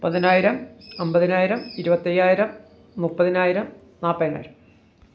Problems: background sounds at intervals